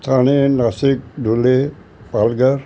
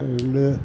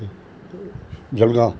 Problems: constant background noise